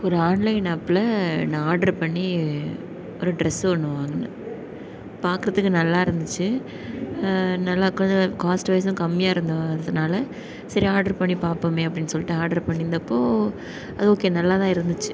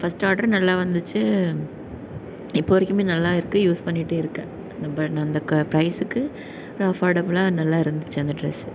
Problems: none marked